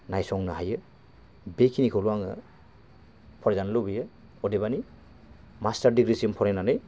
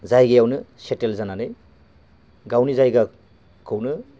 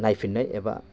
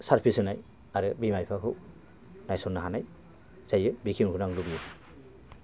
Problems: constant background noise